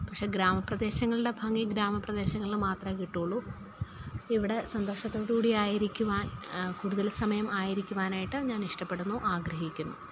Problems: low volume